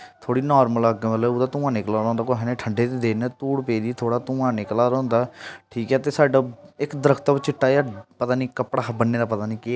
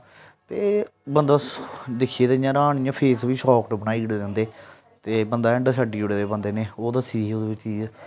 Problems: none marked